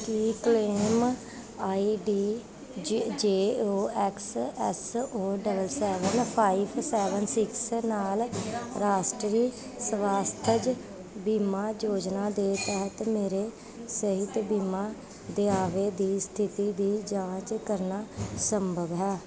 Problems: constant background noise